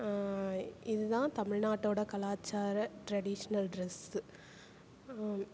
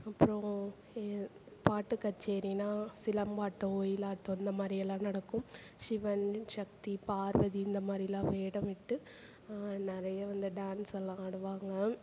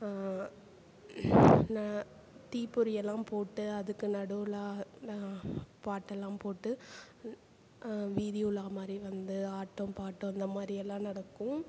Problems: none marked